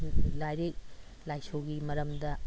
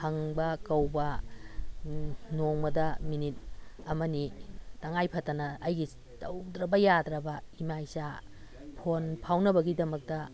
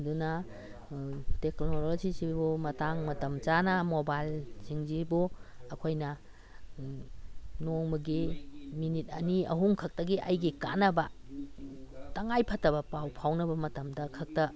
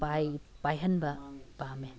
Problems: background sounds at intervals